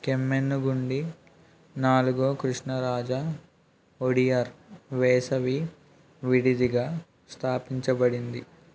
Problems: background sounds at intervals